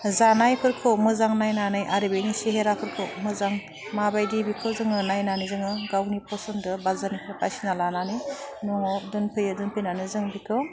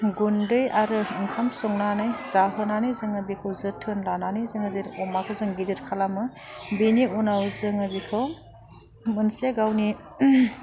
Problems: none marked